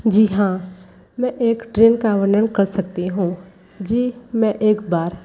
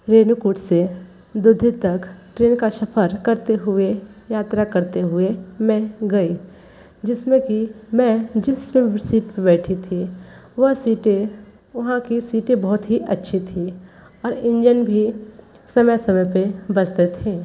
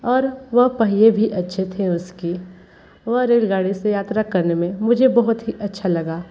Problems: background sounds at intervals